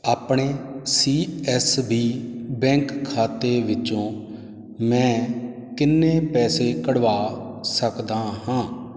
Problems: none marked